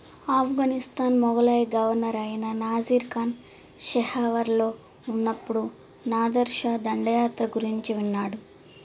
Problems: constant background noise